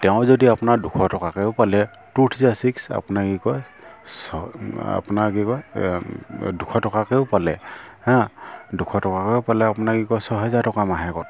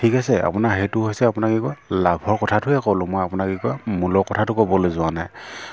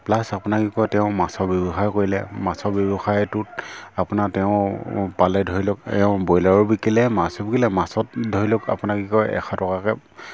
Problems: none marked